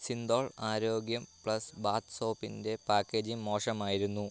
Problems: none marked